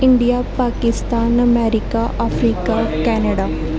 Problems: none marked